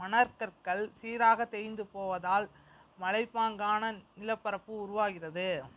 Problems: constant background noise